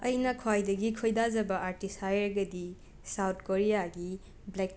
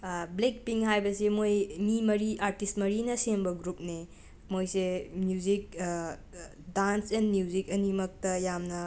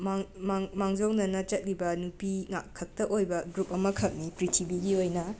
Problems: background sounds at intervals, background conversations at intervals